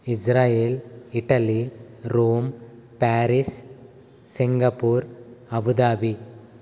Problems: constant background noise